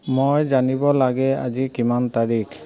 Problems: background sounds at intervals, background conversations at intervals